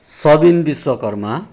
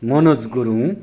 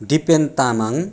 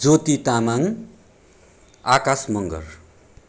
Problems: none marked